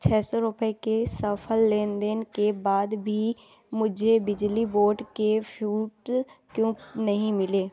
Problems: background sounds at intervals